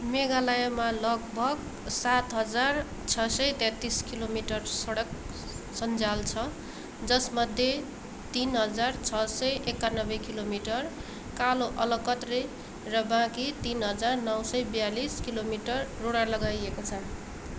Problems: constant background noise